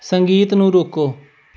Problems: none marked